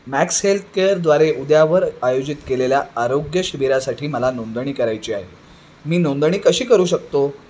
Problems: none marked